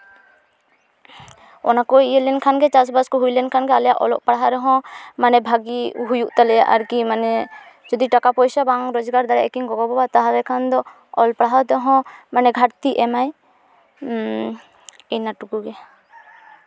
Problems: constant background noise